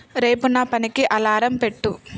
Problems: background sounds at intervals